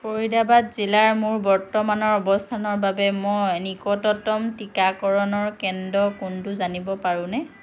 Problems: constant background noise